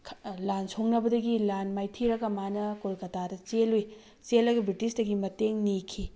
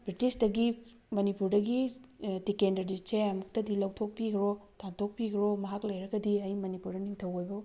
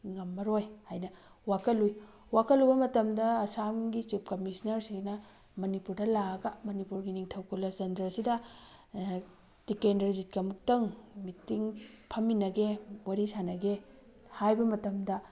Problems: background sounds at intervals